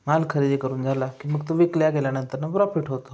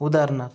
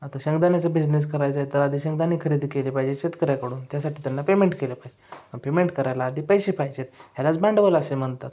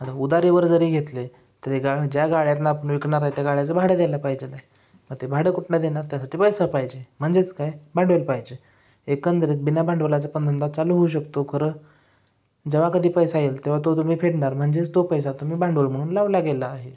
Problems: background sounds at intervals